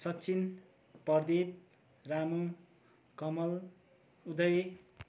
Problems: none marked